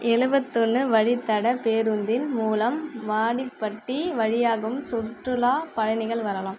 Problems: constant background noise